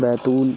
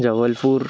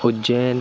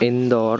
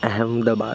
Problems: constant background noise